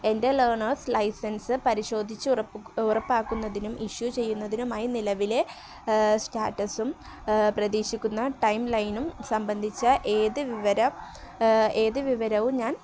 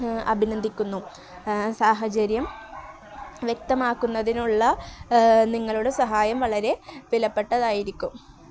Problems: none marked